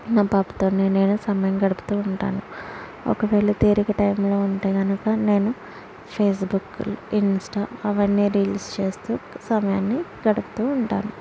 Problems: background sounds at intervals